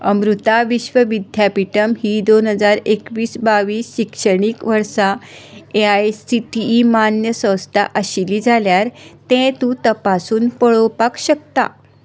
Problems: none marked